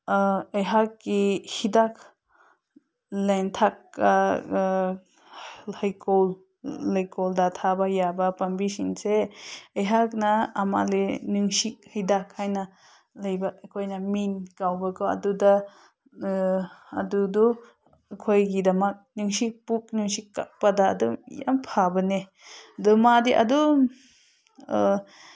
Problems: none marked